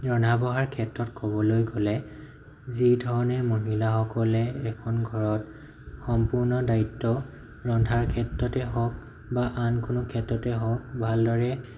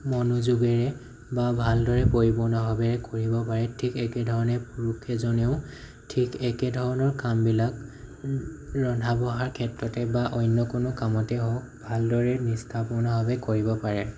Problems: none marked